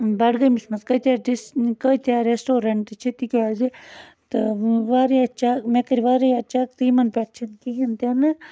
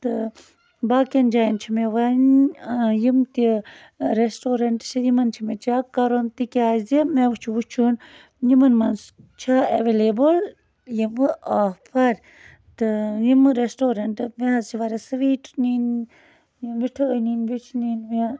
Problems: constant background noise